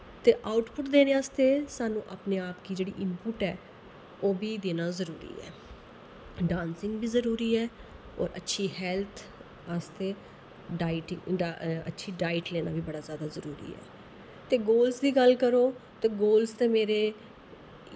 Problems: constant background noise